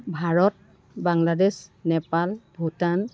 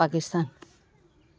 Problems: constant background noise